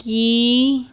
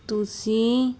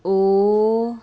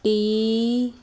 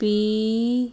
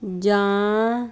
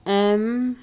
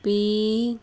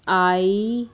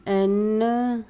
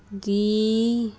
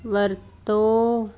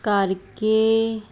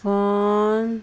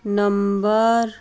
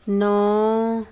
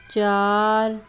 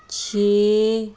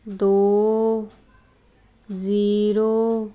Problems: constant background noise